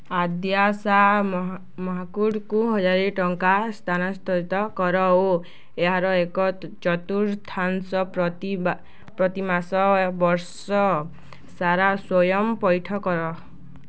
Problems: none marked